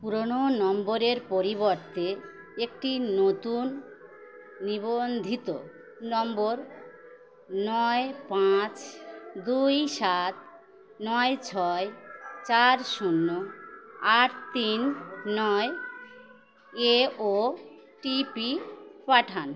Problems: none marked